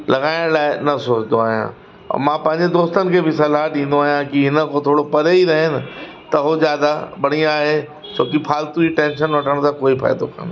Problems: constant background noise, echo